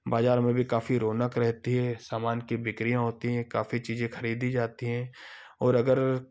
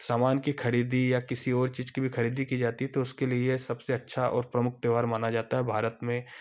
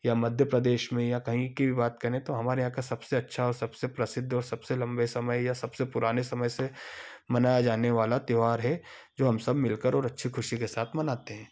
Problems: none marked